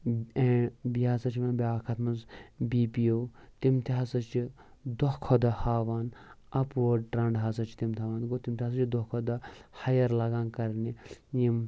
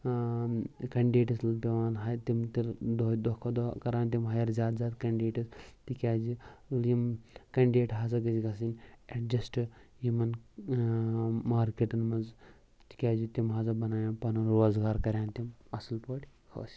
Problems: none marked